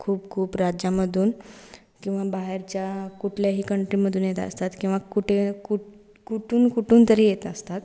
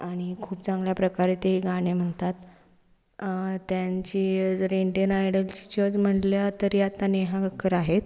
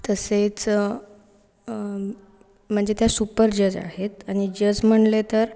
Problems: none marked